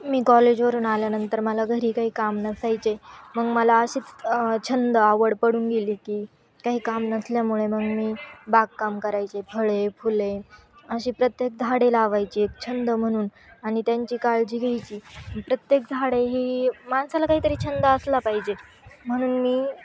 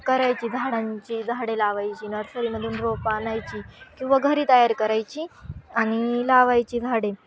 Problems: constant background noise, background conversations at intervals